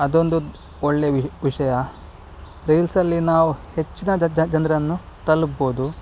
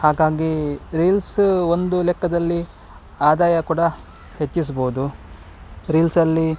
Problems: none marked